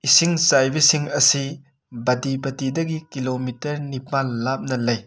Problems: background sounds at intervals